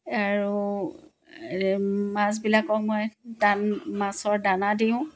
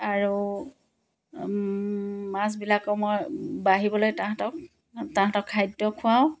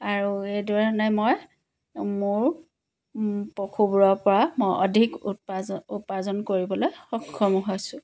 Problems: none marked